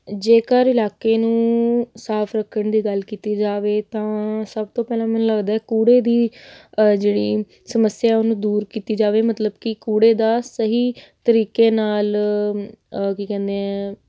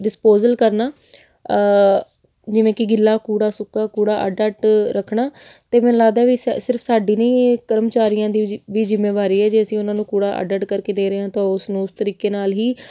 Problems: none marked